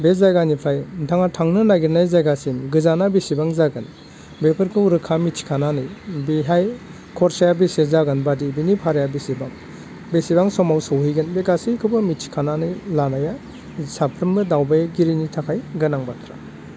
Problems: constant background noise